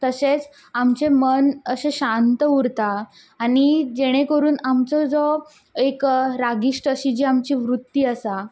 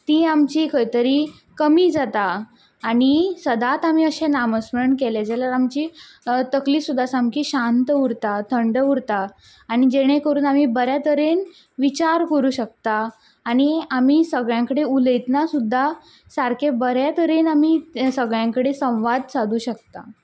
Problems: background sounds at intervals